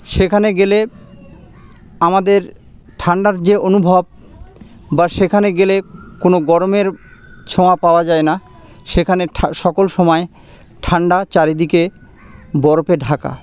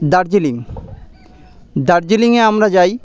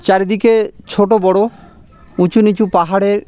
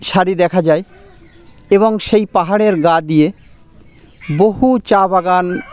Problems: constant background noise, background conversations at intervals